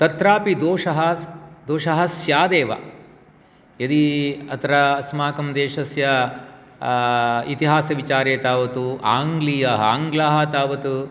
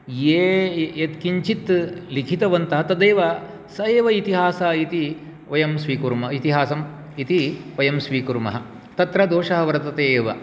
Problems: none marked